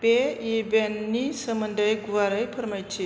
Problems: none marked